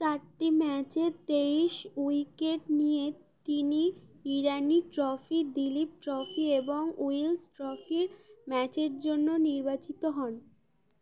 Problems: constant background noise